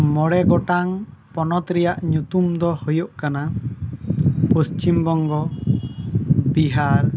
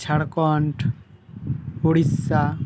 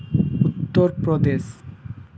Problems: background sounds at intervals